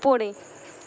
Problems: constant background noise